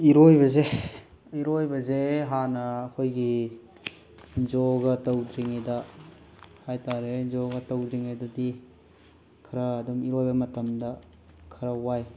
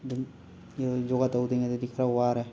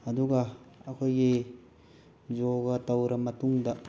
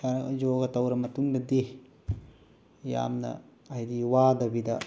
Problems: background sounds at intervals